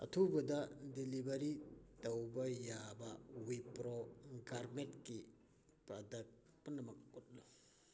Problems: constant background noise